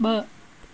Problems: constant background noise